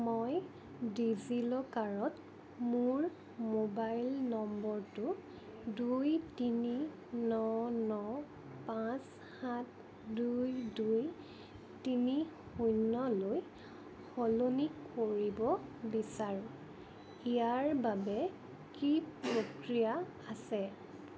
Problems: constant background noise